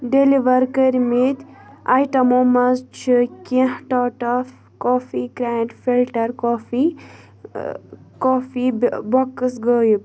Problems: constant background noise, continuous background conversations